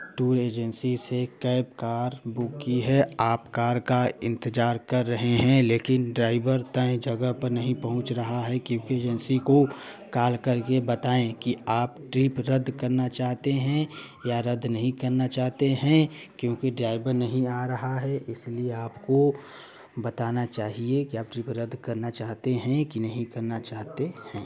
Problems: none marked